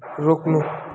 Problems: constant background noise